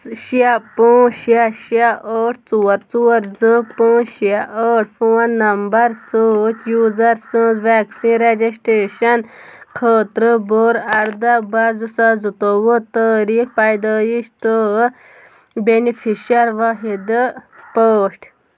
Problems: background sounds at intervals